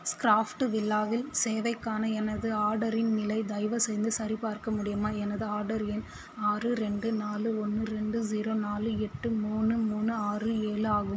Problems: constant background noise